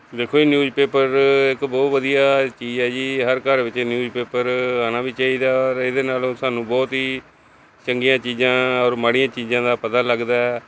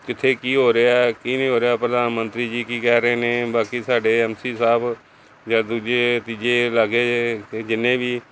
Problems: constant background noise